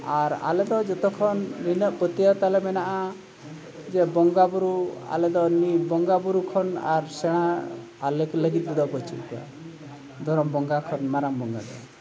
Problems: constant background noise, background conversations at intervals